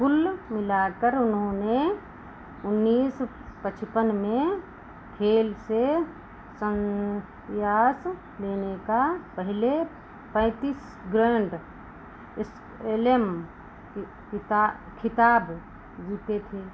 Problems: constant background noise